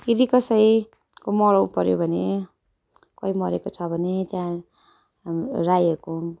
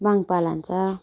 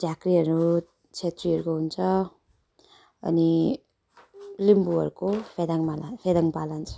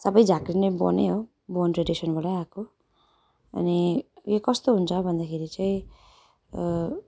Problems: none marked